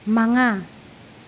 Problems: none marked